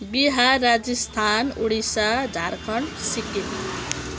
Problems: background sounds at intervals